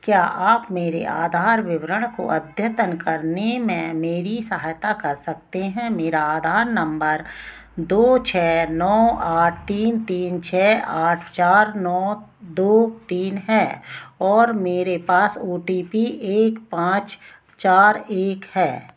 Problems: none marked